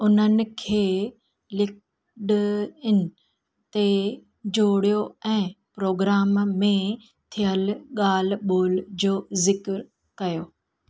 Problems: constant background noise